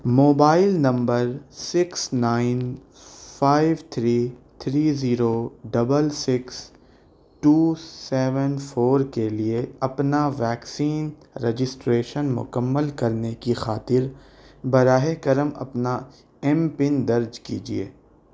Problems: none marked